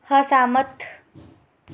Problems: none marked